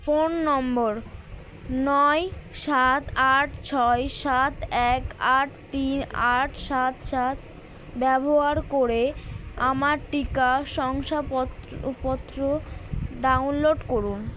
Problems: constant background noise